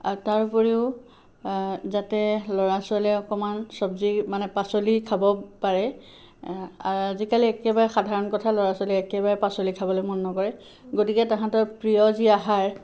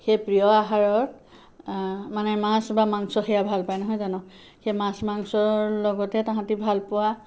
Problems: background sounds at intervals